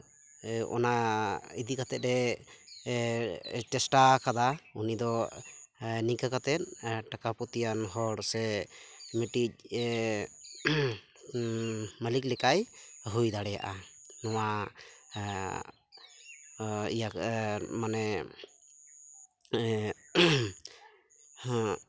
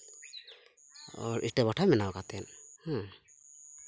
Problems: none marked